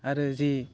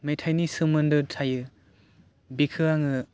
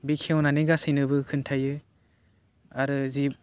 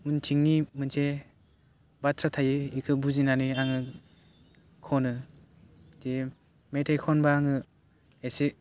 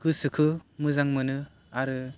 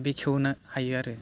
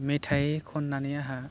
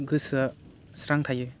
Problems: none marked